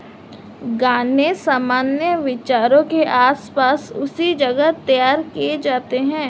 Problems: constant background noise